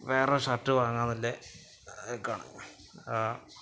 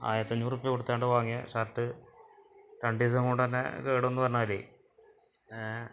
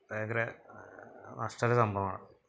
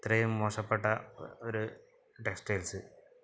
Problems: background sounds at intervals